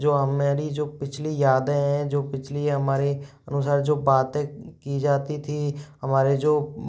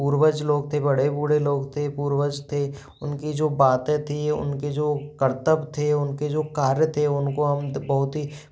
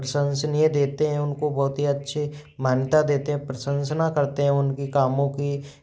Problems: background sounds at intervals